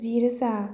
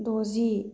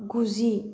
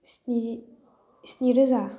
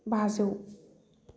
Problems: none marked